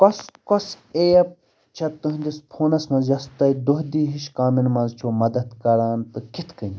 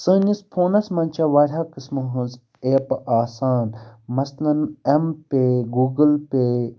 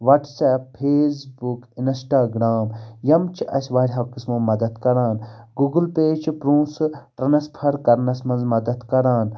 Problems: none marked